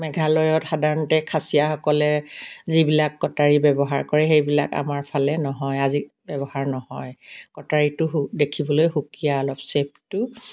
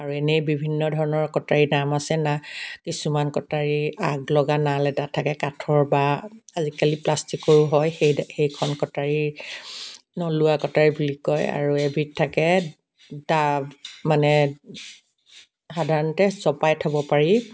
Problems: background sounds at intervals, background conversations at intervals